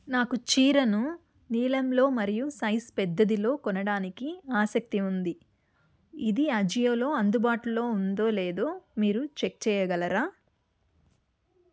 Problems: none marked